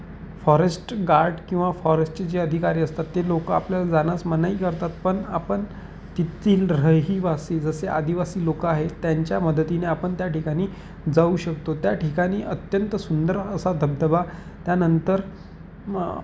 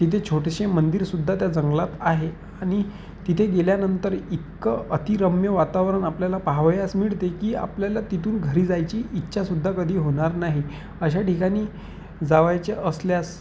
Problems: constant background noise